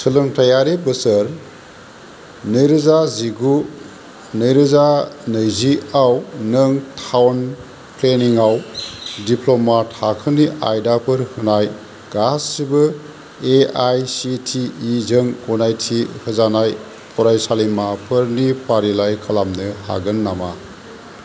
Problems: constant background noise